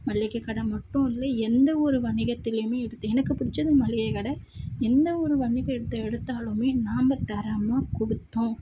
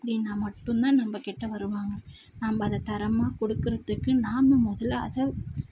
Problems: none marked